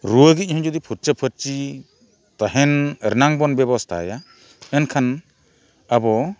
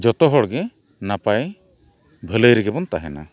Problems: none marked